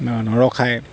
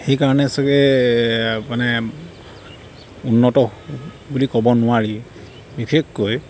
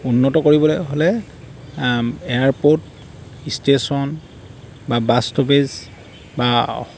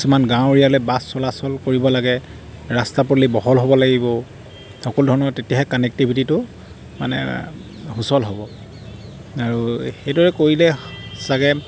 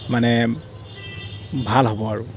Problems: background sounds at intervals